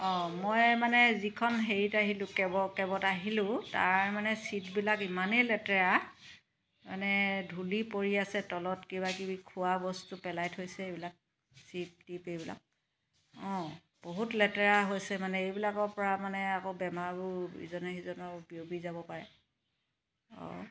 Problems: background sounds at intervals